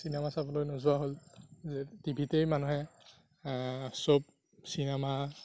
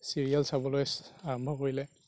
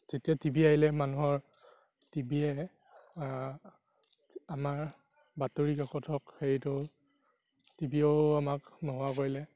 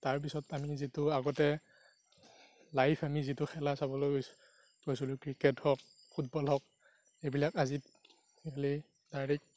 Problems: background sounds at intervals, low volume